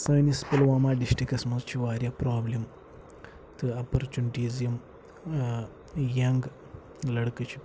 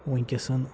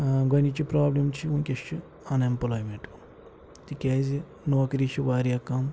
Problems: background sounds at intervals, low volume